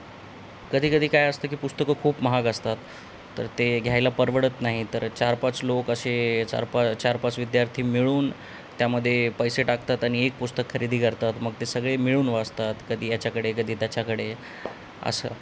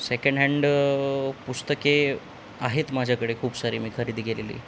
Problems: none marked